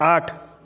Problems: none marked